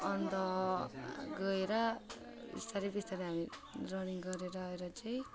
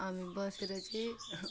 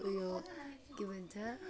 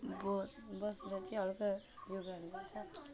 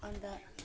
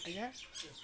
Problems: constant background noise